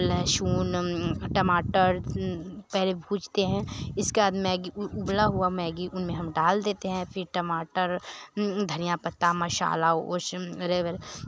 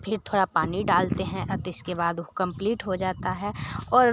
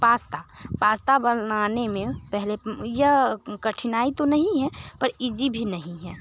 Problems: constant background noise